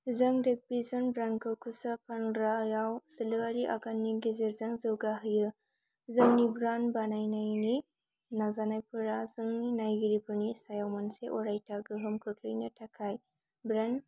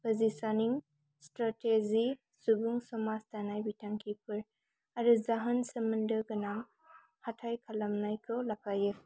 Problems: none marked